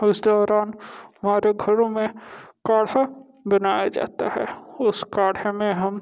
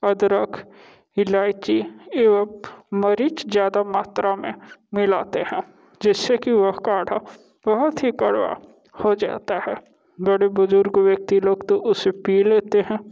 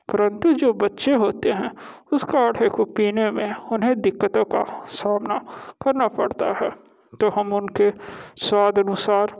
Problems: none marked